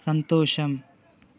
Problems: constant background noise